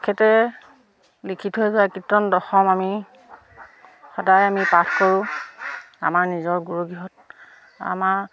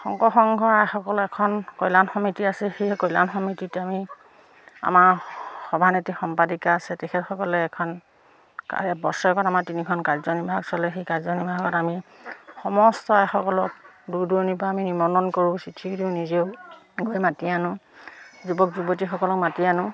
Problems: none marked